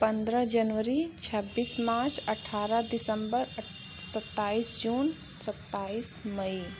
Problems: constant background noise